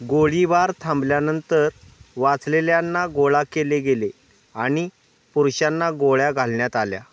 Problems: background sounds at intervals